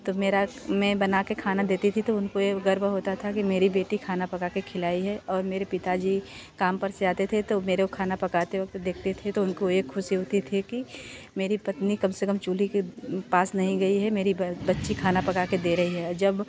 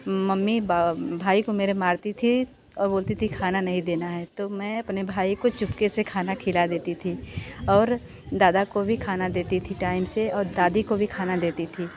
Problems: continuous background conversations